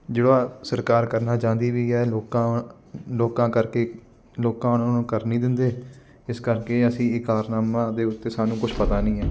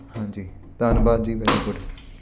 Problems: constant background noise